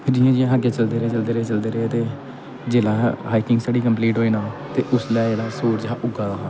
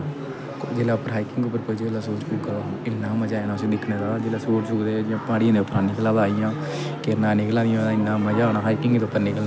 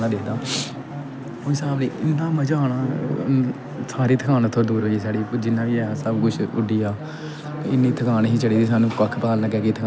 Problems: constant background noise